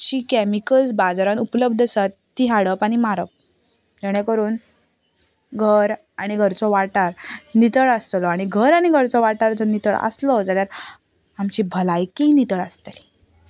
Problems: background sounds at intervals, background conversations at intervals